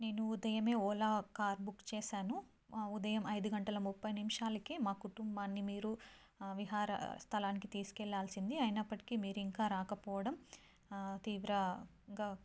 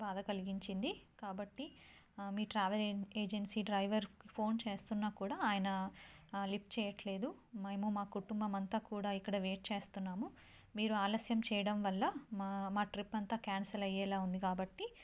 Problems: low volume